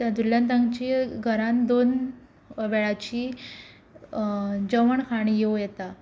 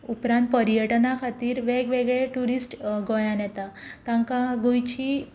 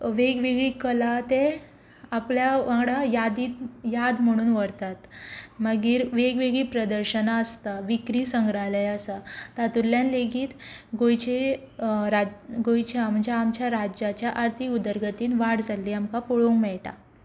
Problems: background sounds at intervals